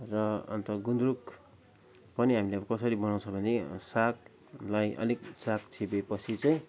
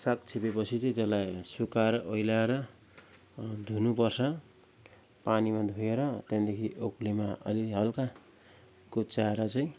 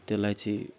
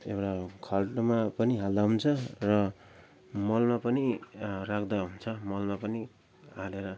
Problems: constant background noise